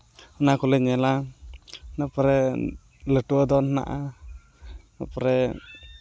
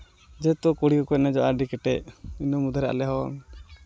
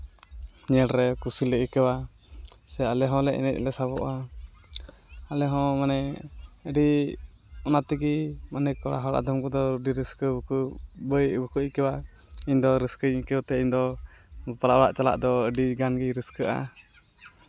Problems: constant background noise, background conversations at intervals